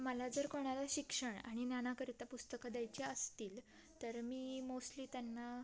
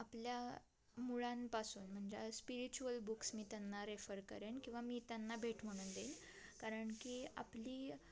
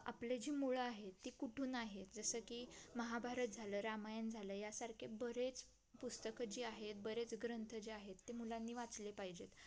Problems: constant background noise